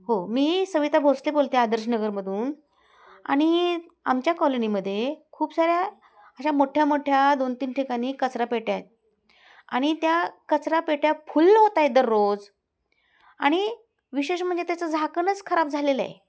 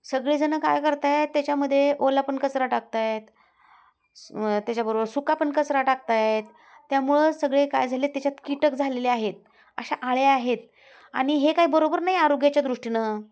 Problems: constant background noise, background conversations at intervals